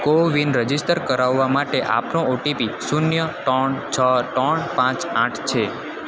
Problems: constant background noise